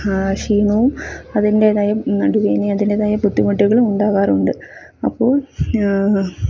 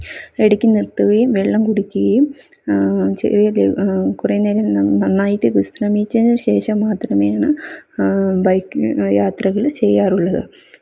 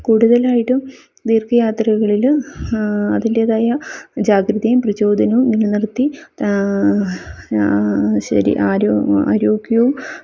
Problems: none marked